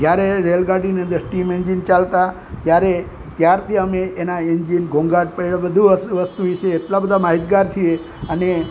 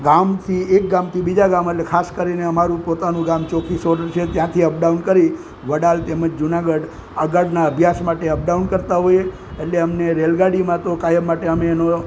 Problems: constant background noise